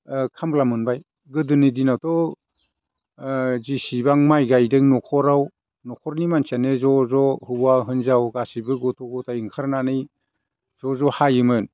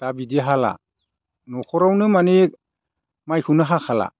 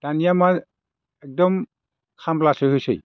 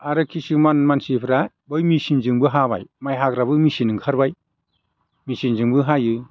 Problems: none marked